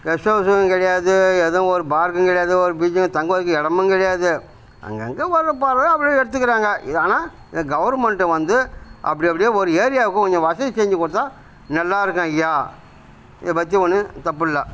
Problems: background sounds at intervals